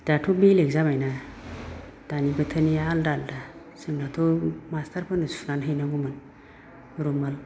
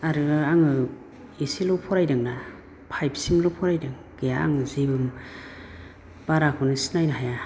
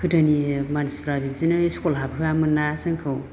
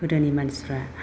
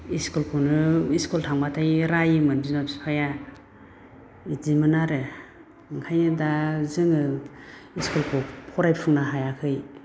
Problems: none marked